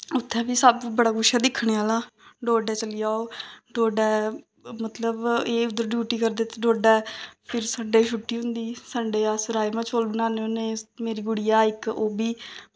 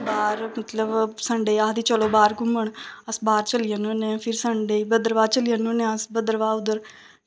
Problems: none marked